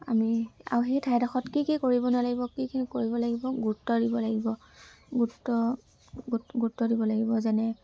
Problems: constant background noise, background conversations at intervals